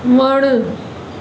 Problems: constant background noise, echo